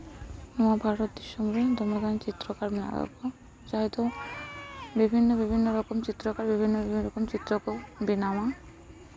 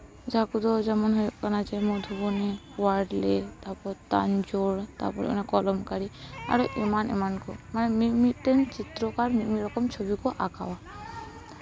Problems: background sounds at intervals, background conversations at intervals